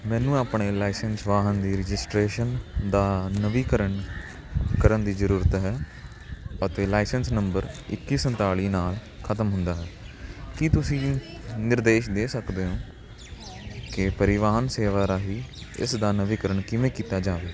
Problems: constant background noise